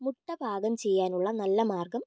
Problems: low volume